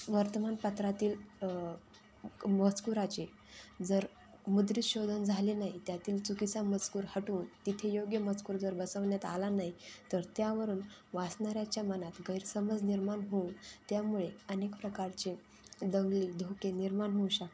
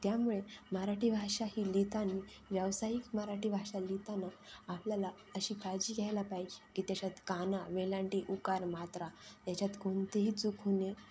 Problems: constant background noise, continuous background conversations